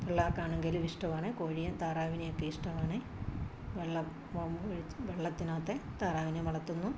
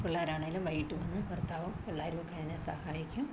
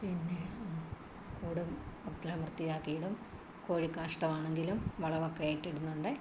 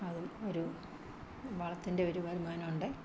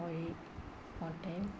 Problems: constant background noise, background conversations at intervals, low volume